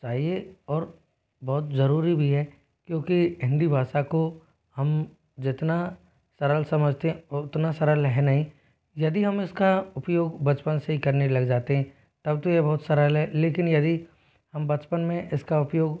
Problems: none marked